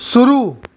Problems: constant background noise